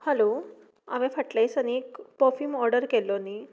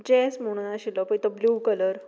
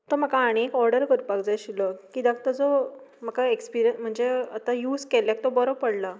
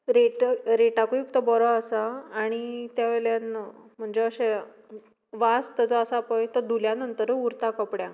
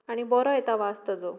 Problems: background sounds at intervals